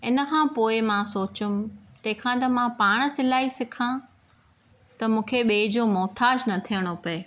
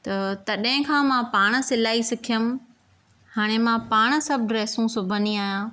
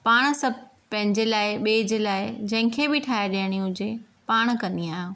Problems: none marked